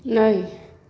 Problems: none marked